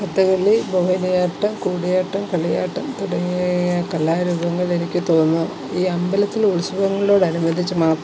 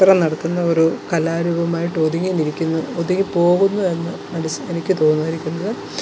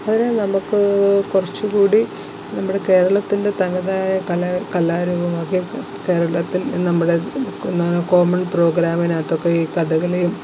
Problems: constant background noise